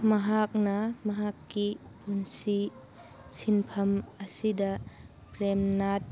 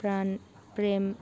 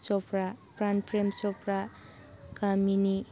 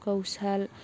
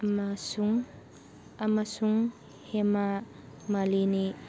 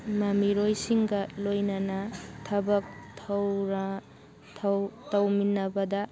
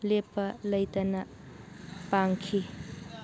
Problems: background sounds at intervals, background conversations at intervals